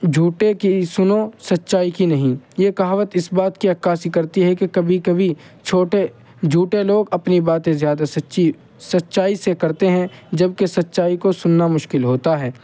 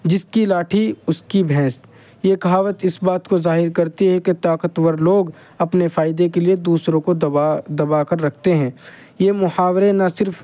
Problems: constant background noise